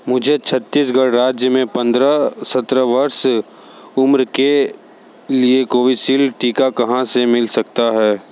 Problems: constant background noise